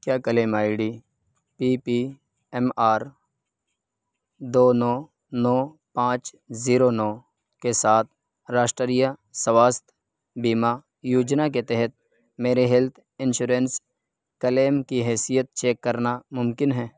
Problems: none marked